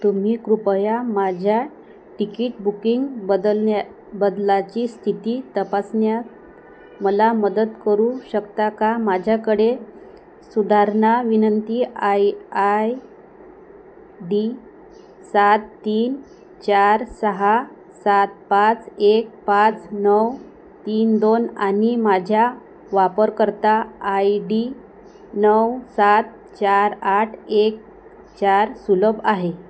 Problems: constant background noise